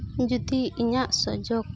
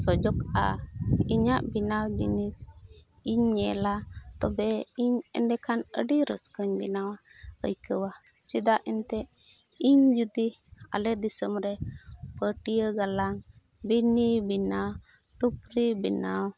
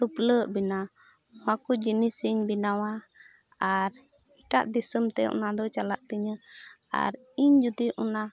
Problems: background conversations at intervals